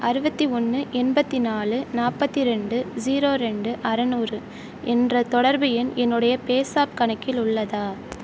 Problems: none marked